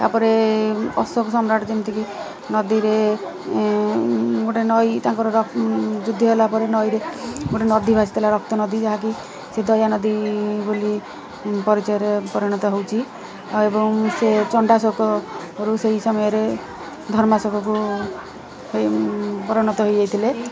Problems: constant background noise, continuous background conversations